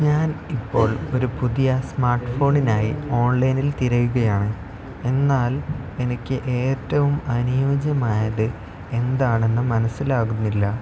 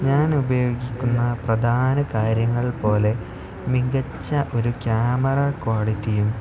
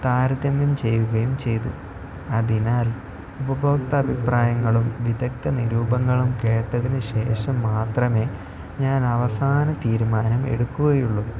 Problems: constant background noise, low volume